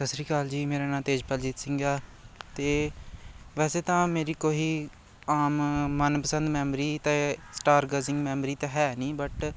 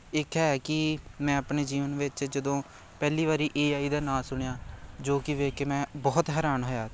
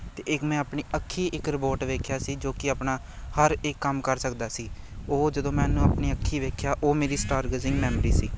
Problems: constant background noise